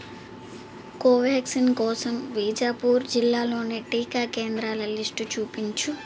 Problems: background sounds at intervals